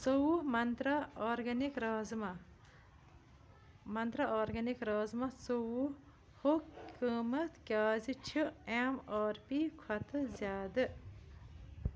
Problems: background sounds at intervals